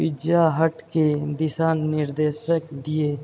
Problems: background sounds at intervals